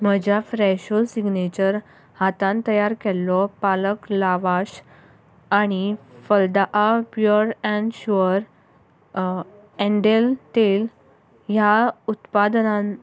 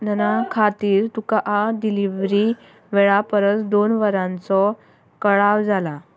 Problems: background sounds at intervals